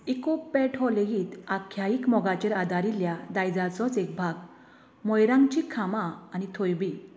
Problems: constant background noise